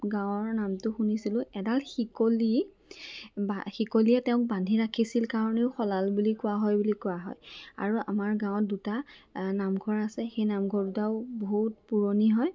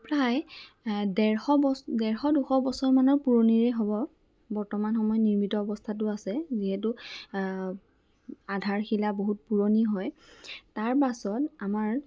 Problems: none marked